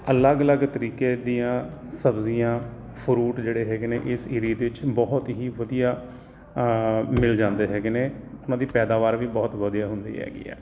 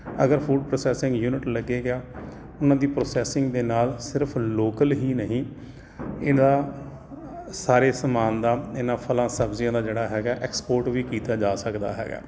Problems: constant background noise